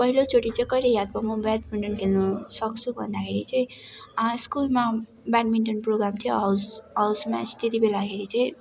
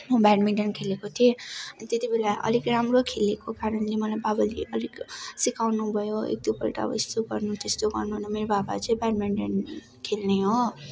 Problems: constant background noise